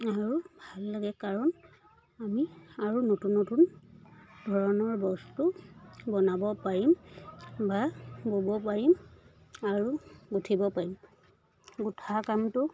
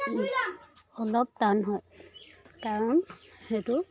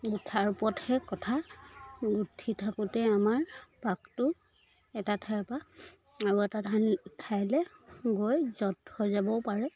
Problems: continuous background conversations